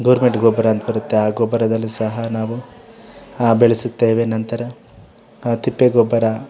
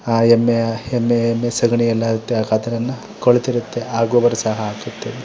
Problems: background conversations at intervals